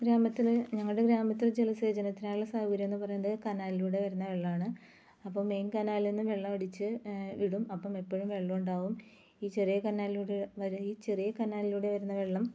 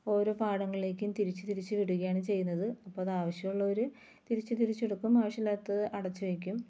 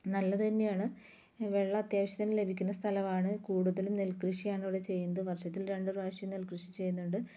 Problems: low volume